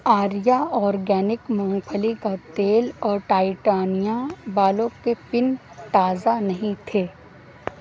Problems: constant background noise